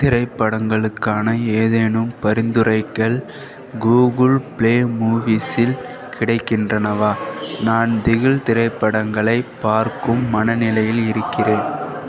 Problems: continuous background conversations